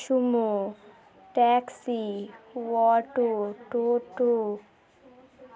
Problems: none marked